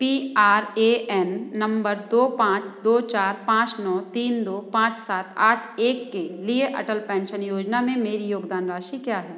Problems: background sounds at intervals